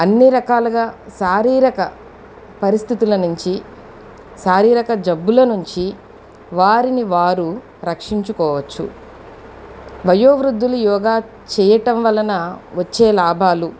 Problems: constant background noise, background conversations at intervals